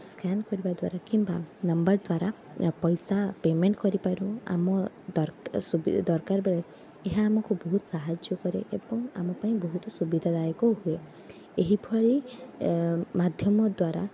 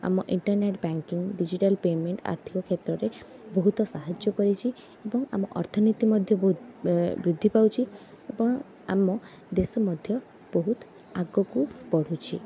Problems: none marked